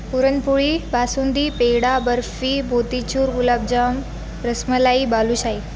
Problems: constant background noise, background conversations at intervals